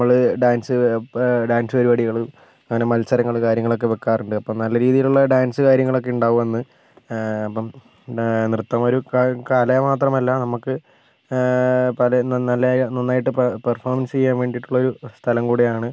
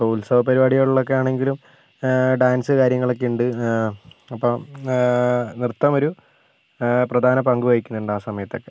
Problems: constant background noise